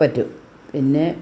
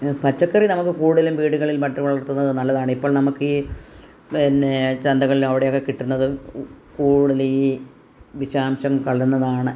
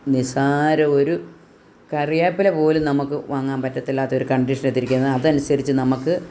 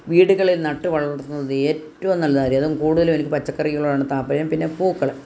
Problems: none marked